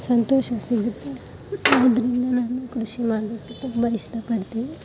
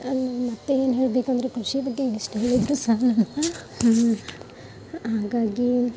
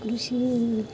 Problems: background sounds at intervals, background conversations at intervals